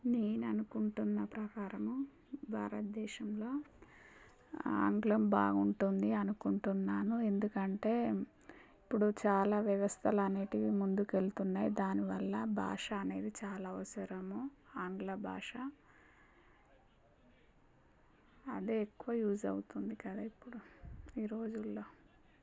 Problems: low volume